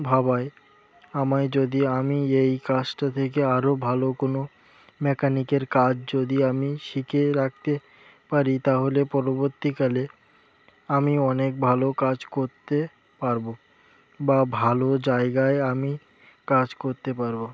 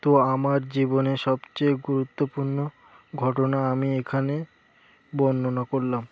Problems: background sounds at intervals